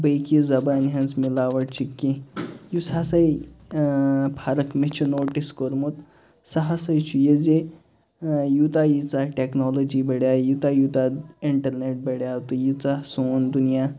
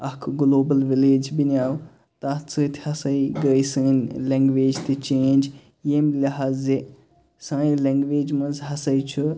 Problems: constant background noise, background conversations at intervals